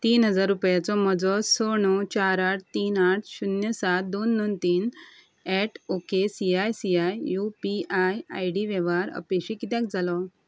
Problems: constant background noise